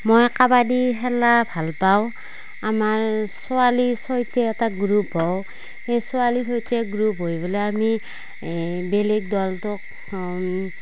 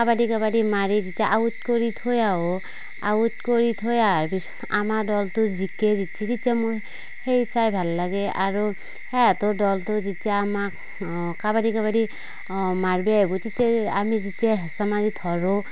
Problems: background sounds at intervals